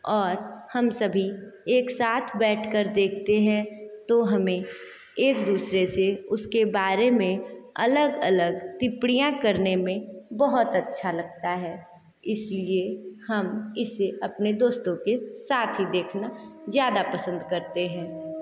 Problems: constant background noise, echo